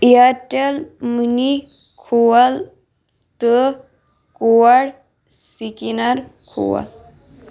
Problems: none marked